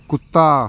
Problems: none marked